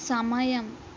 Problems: constant background noise